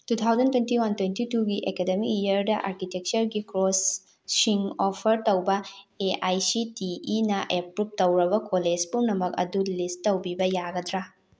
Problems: none marked